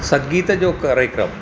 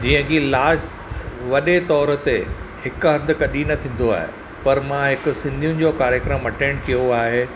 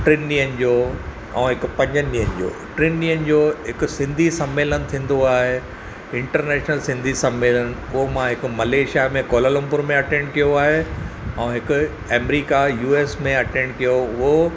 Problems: none marked